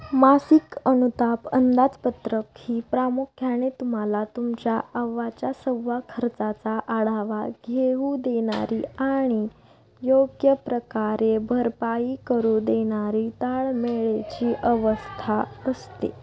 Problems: none marked